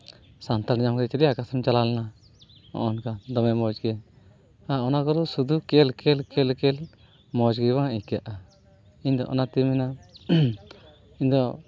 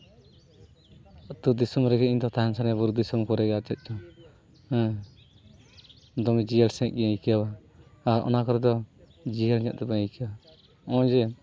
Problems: none marked